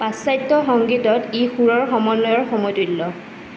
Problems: constant background noise